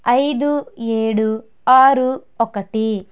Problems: none marked